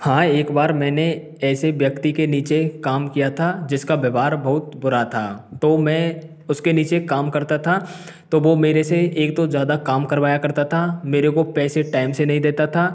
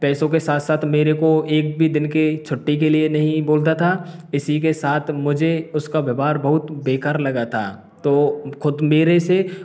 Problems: none marked